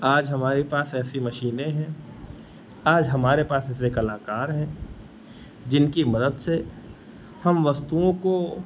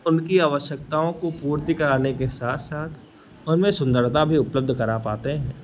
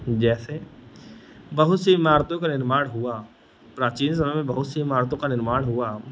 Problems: none marked